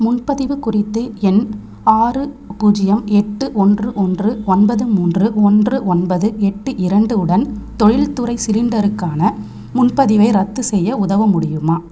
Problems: none marked